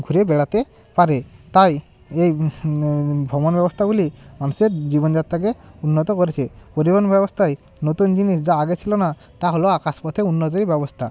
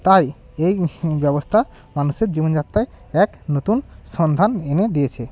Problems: constant background noise